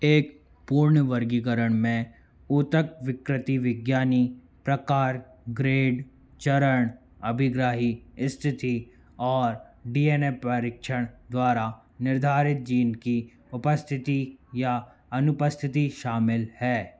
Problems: constant background noise